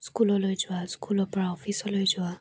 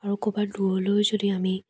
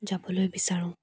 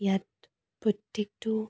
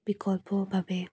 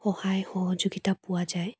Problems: none marked